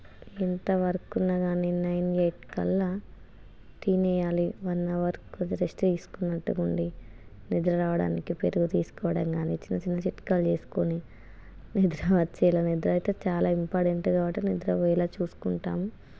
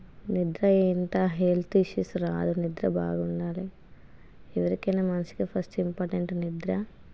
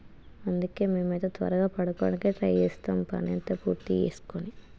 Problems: constant background noise